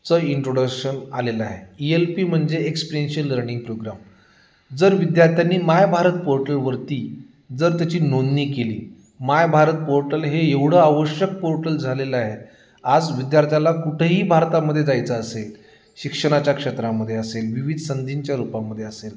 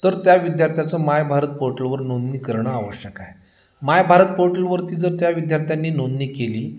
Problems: constant background noise, background conversations at intervals